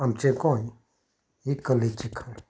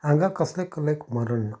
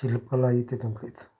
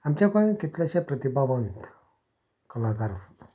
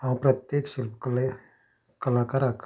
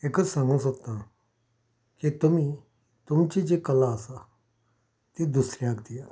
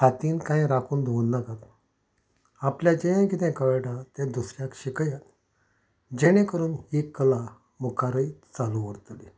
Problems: background sounds at intervals